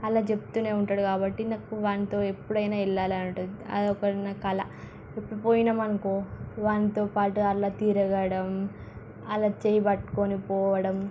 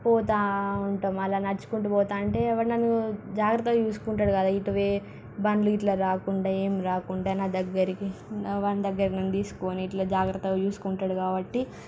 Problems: background sounds at intervals